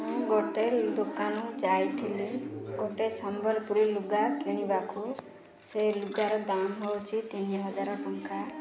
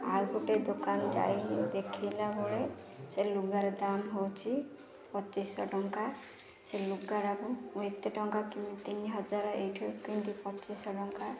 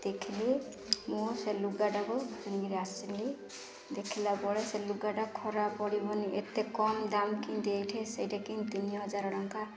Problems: constant background noise